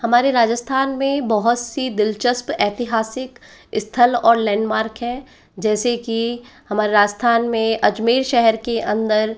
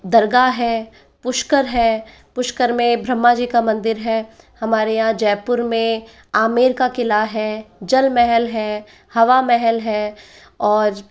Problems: none marked